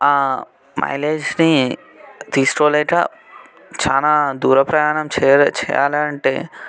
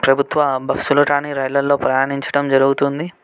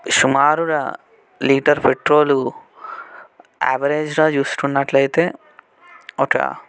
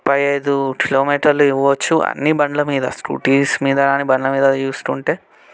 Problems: background conversations at intervals